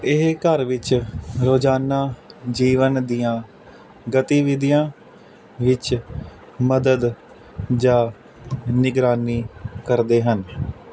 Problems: none marked